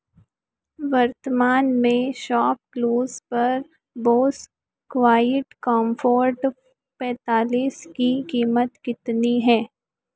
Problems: none marked